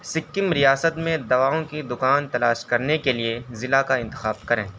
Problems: constant background noise